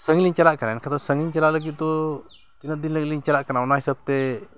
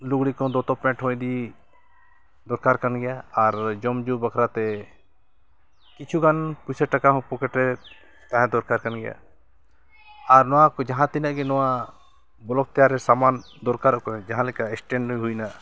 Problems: background sounds at intervals, continuous background conversations